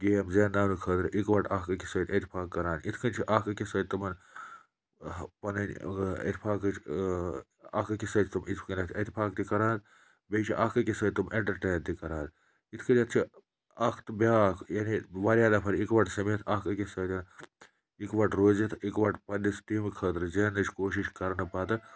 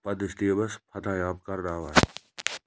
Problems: none marked